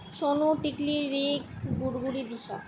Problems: none marked